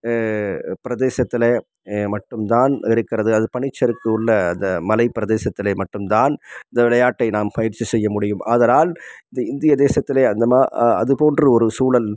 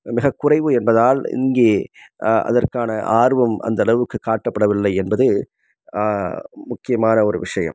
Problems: background sounds at intervals